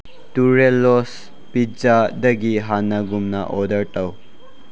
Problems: none marked